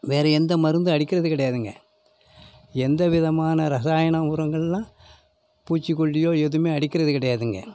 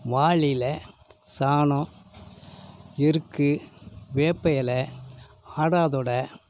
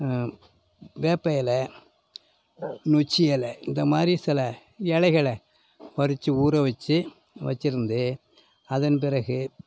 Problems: none marked